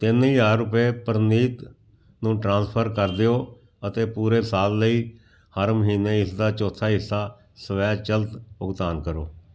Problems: none marked